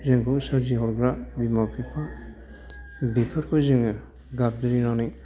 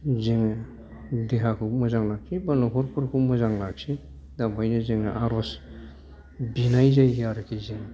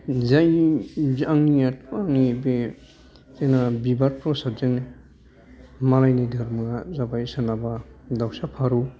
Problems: background conversations at intervals